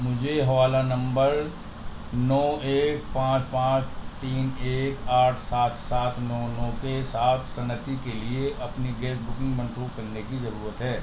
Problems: constant background noise, low volume